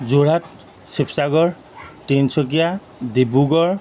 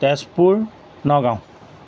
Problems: background sounds at intervals